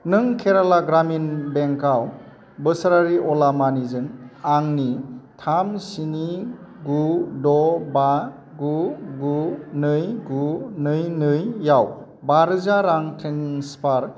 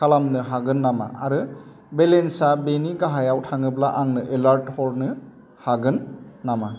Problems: constant background noise